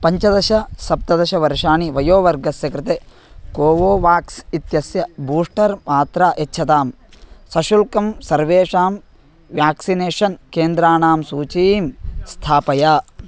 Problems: constant background noise